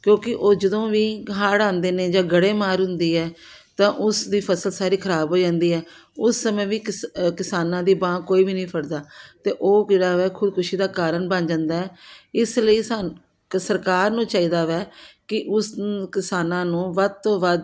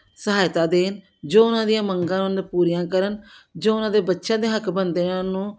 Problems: background sounds at intervals